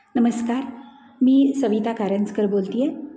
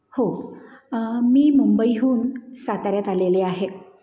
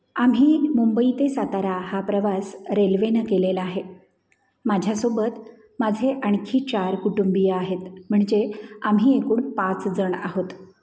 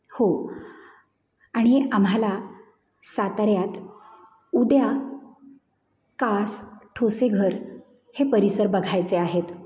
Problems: background sounds at intervals, echo